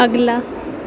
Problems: constant background noise